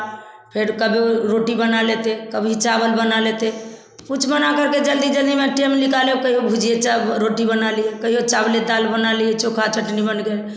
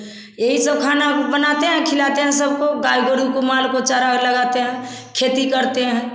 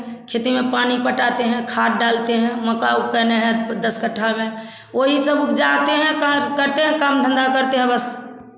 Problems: none marked